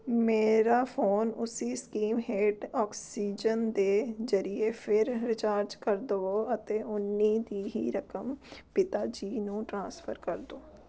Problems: none marked